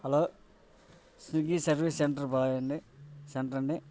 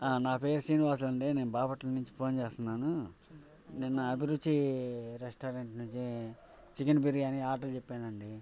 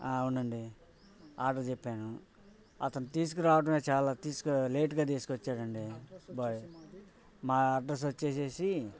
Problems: background sounds at intervals